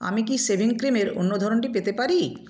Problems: background sounds at intervals